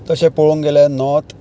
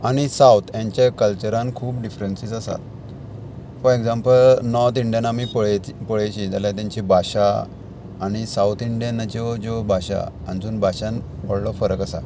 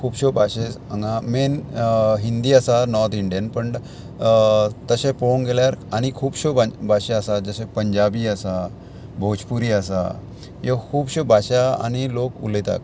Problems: constant background noise